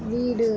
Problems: none marked